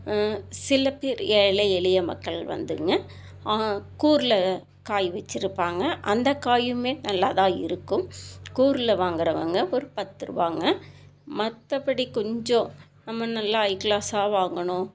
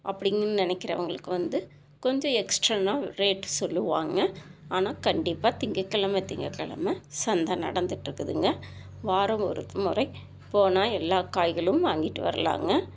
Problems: constant background noise